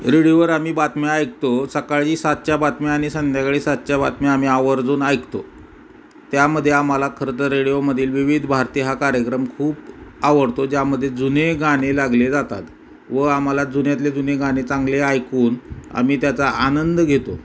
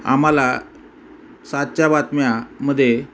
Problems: constant background noise